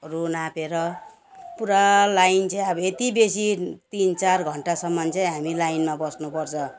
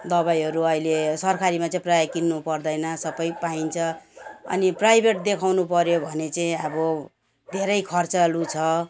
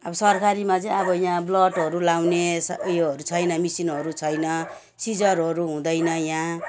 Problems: background sounds at intervals